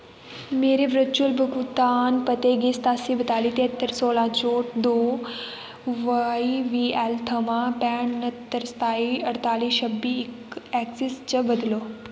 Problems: constant background noise, echo